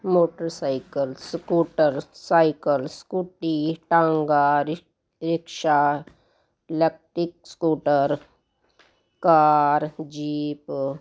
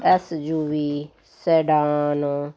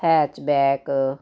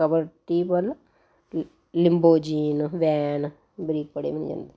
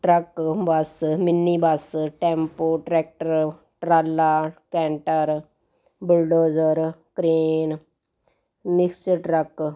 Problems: constant background noise